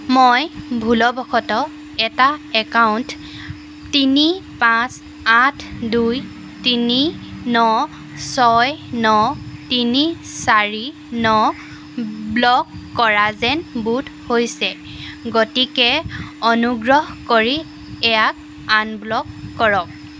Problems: constant background noise